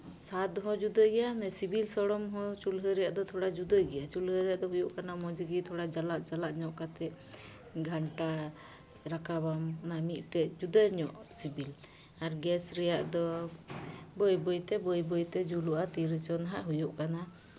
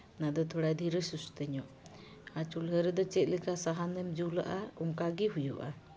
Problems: none marked